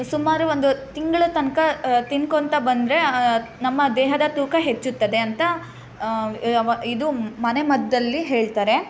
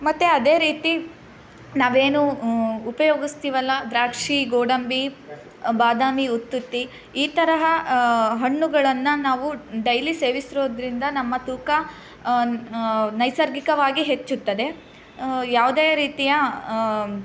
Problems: background sounds at intervals